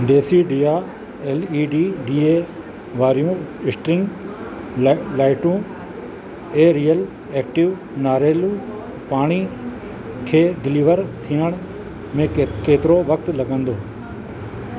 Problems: constant background noise